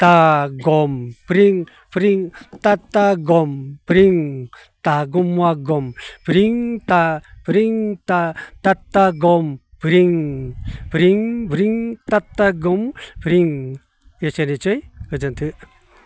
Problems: constant background noise